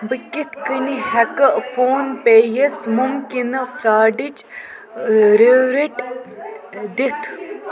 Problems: constant background noise